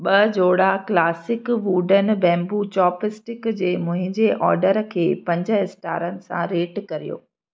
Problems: none marked